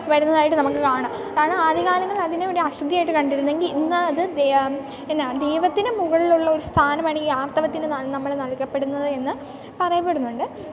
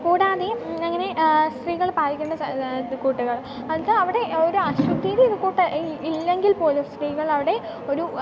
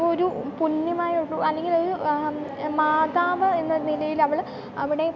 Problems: background sounds at intervals